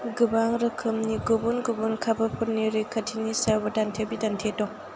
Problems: constant background noise